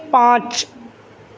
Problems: none marked